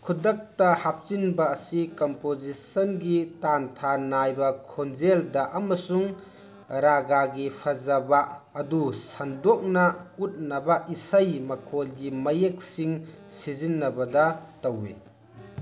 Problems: background sounds at intervals, background conversations at intervals